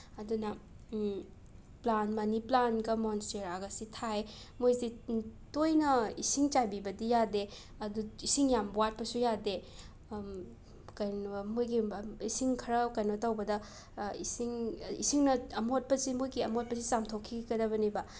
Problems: constant background noise